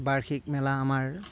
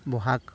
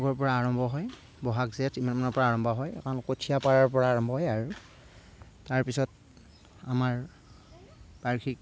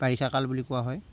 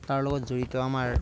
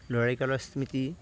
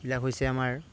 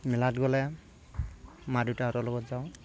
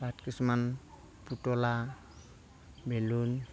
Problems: background sounds at intervals, low volume